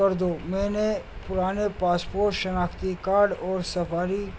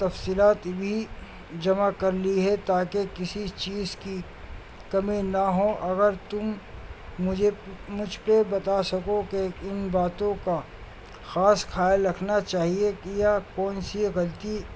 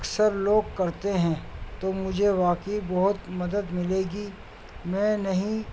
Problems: constant background noise